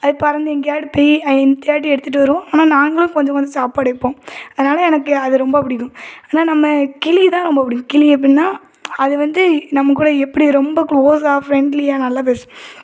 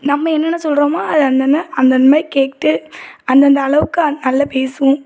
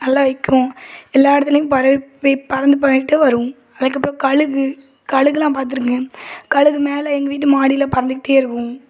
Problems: none marked